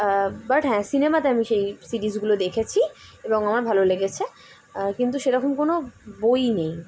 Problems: none marked